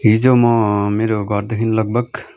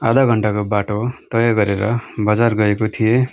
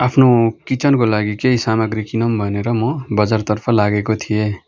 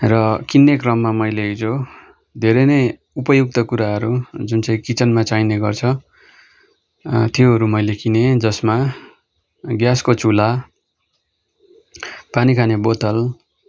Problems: background sounds at intervals